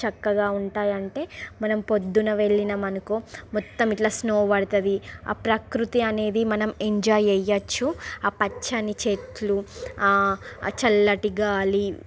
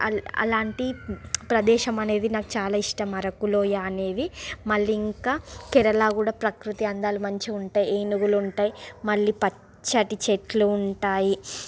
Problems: constant background noise